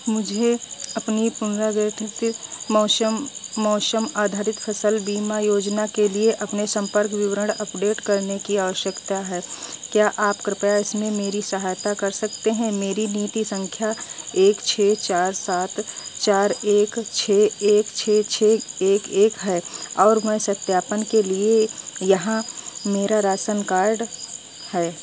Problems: constant background noise